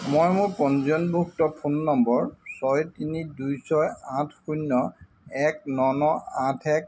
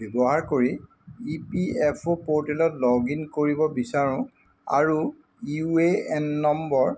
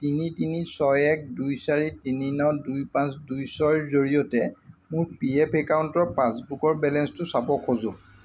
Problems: constant background noise